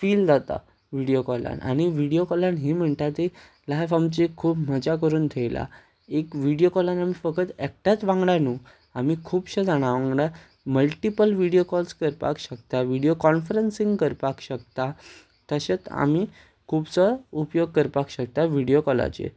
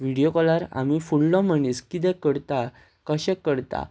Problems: constant background noise